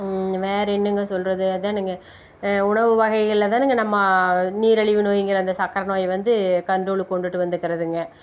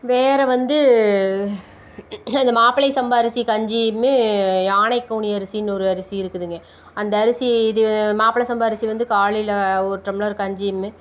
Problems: none marked